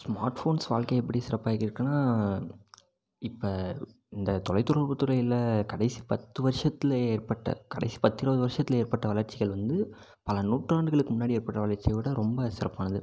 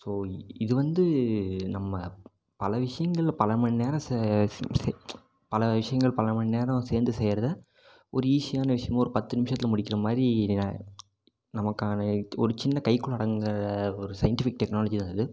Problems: none marked